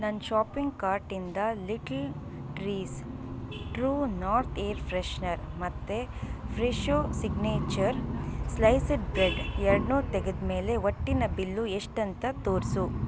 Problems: background sounds at intervals